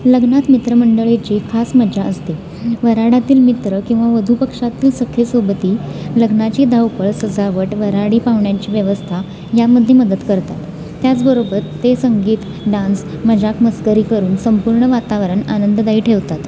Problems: none marked